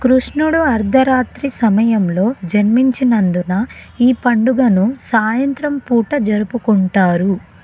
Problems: none marked